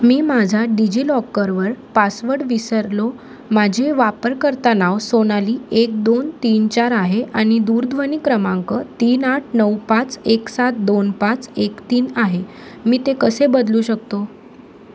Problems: constant background noise